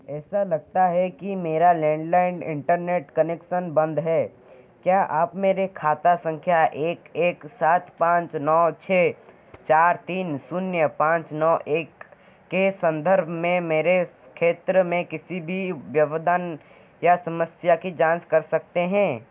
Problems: constant background noise